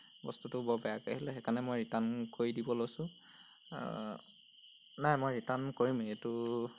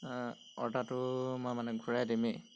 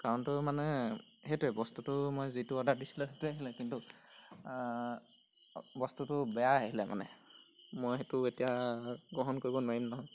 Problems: background sounds at intervals